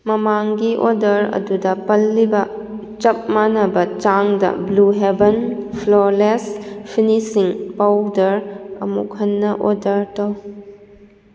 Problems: echo